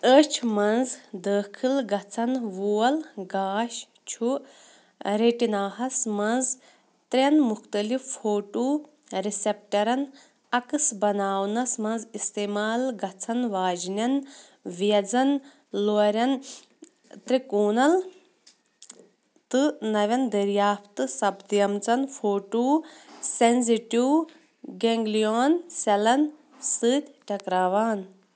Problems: none marked